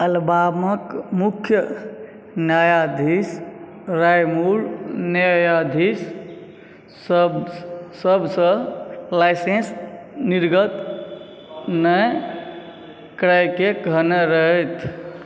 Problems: background sounds at intervals